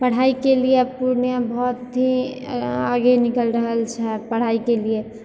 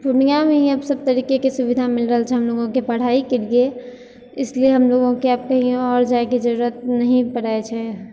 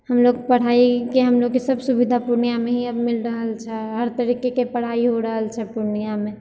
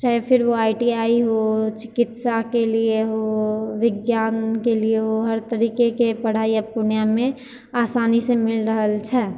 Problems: none marked